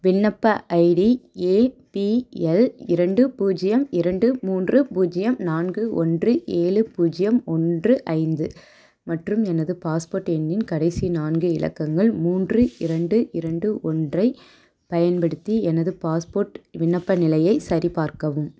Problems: none marked